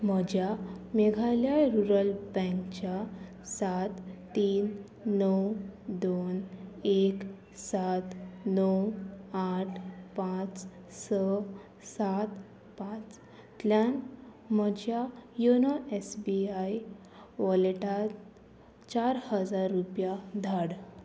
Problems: constant background noise